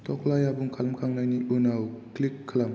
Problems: none marked